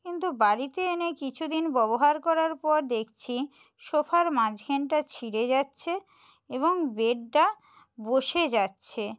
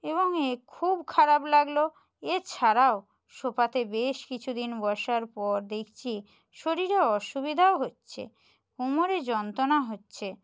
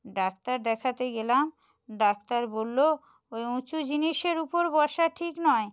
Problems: none marked